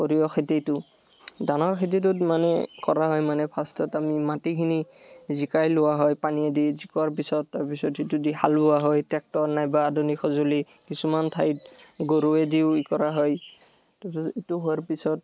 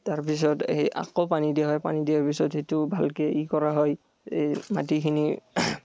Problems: background sounds at intervals